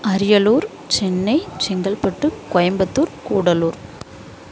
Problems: constant background noise